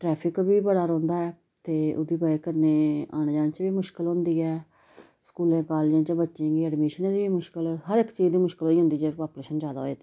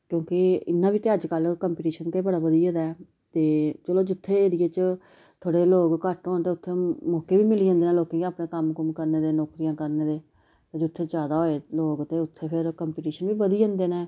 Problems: background sounds at intervals